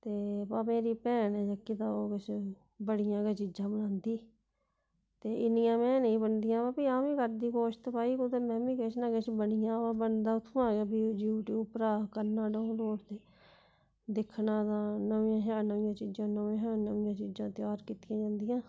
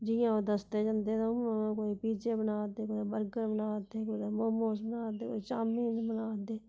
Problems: none marked